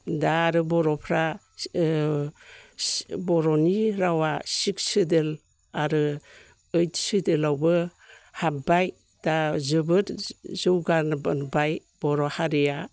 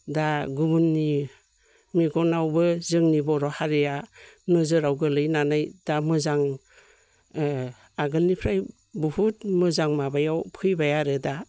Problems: none marked